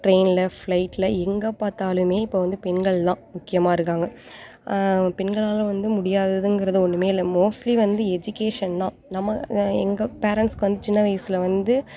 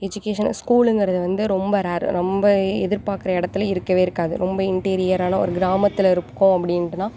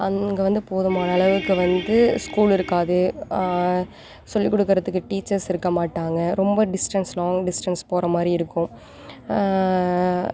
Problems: background sounds at intervals